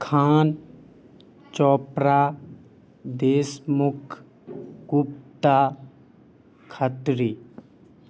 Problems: background sounds at intervals